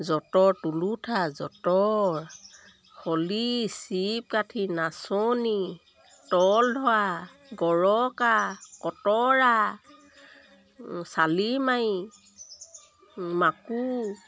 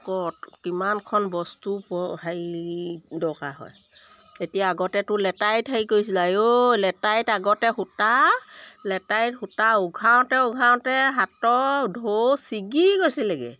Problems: none marked